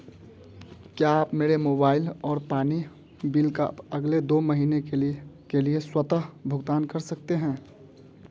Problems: none marked